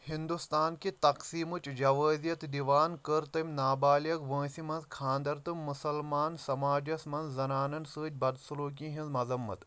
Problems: none marked